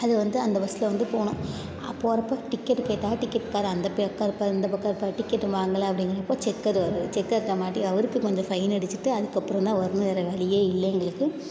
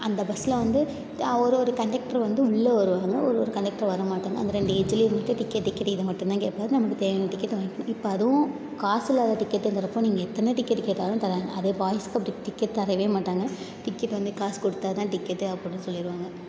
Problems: none marked